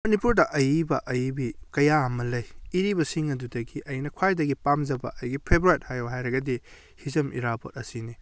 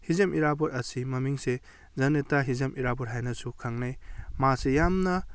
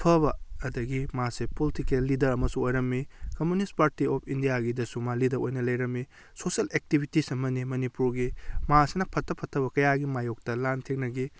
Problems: none marked